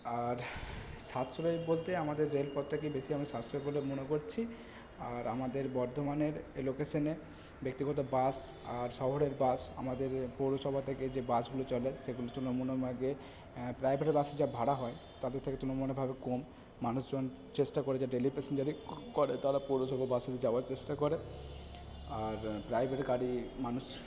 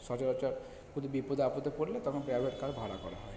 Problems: none marked